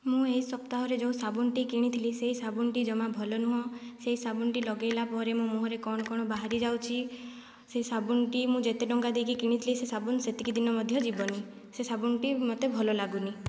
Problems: low volume